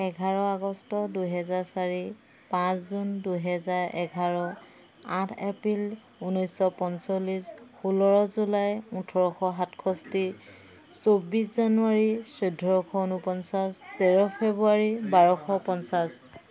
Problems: background sounds at intervals